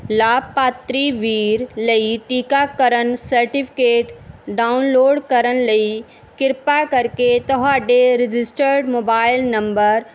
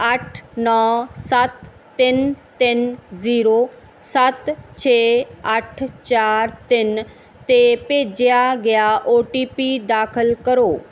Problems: background sounds at intervals